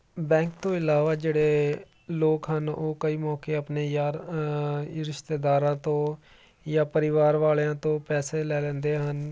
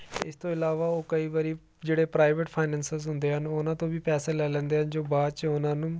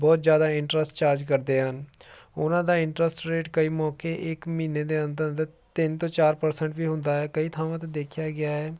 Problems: none marked